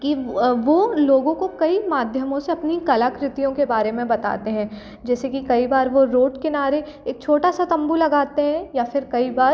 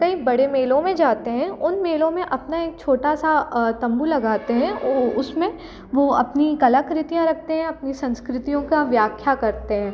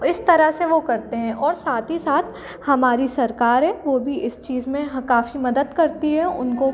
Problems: constant background noise